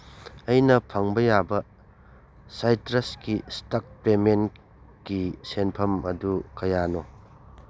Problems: none marked